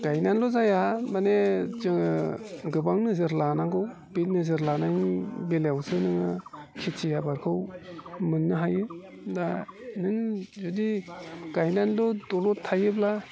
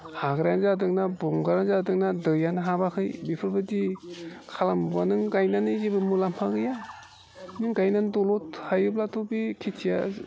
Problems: constant background noise